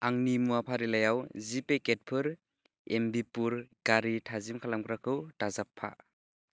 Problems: low volume